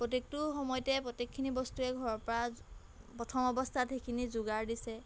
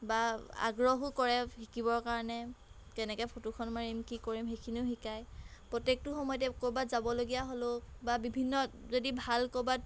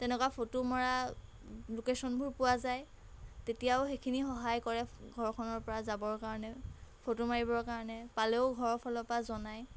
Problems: background sounds at intervals